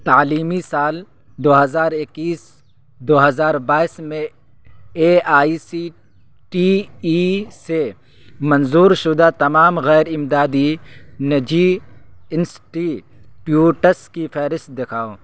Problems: constant background noise